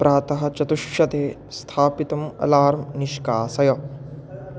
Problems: constant background noise, background conversations at intervals